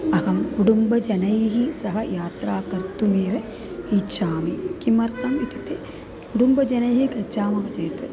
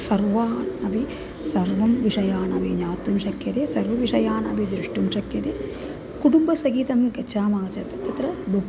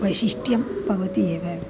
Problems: background sounds at intervals